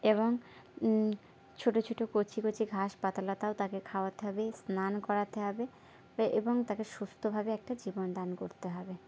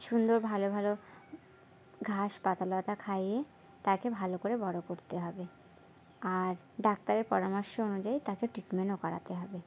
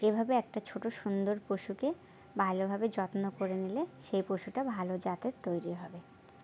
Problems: background sounds at intervals, continuous background conversations